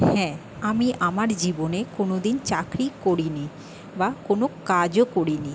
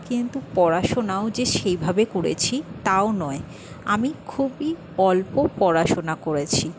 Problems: constant background noise